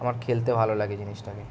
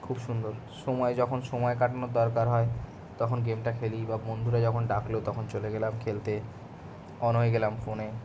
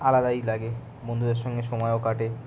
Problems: none marked